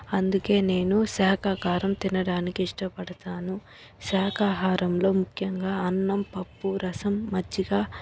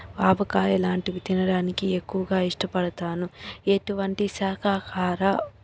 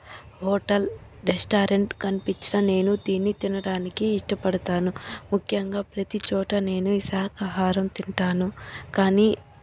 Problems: none marked